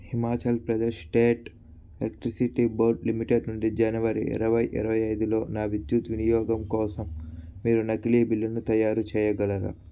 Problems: none marked